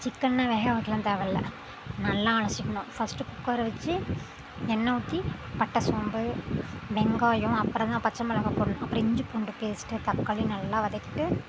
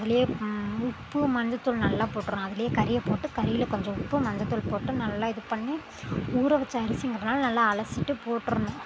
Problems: constant background noise